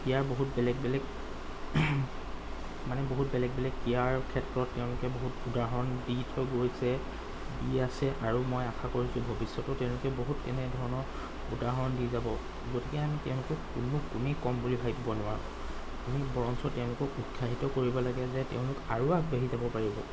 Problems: constant background noise